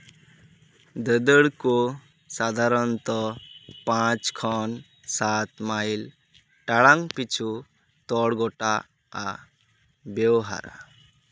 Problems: background sounds at intervals, background conversations at intervals